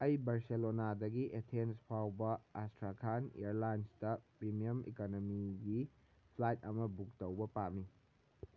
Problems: none marked